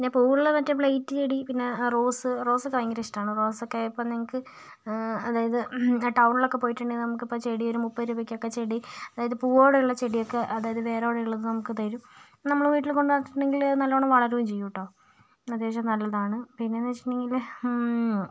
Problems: none marked